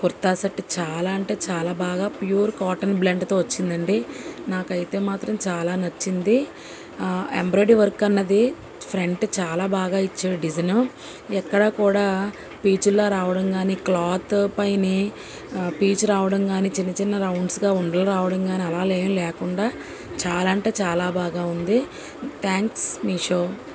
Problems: constant background noise